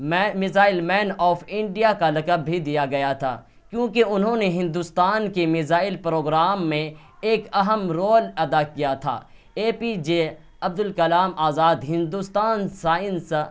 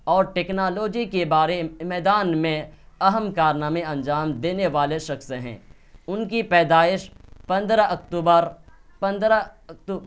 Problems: background sounds at intervals